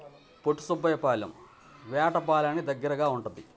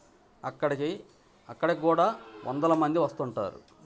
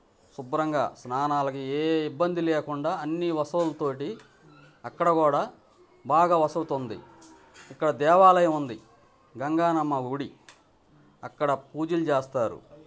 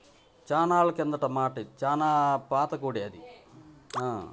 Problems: constant background noise, background conversations at intervals